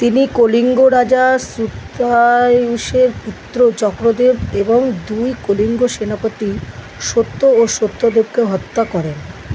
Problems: none marked